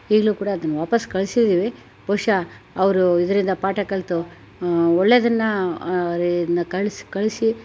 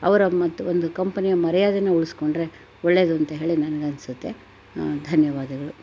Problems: none marked